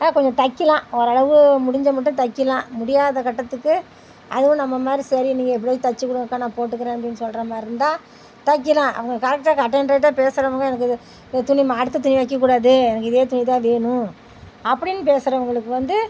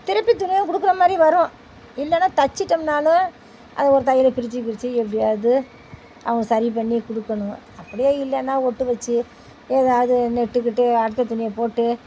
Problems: none marked